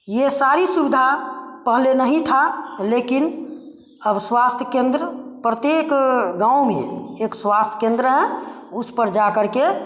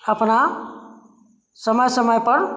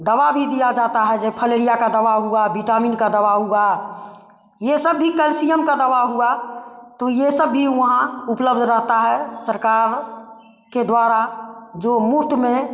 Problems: none marked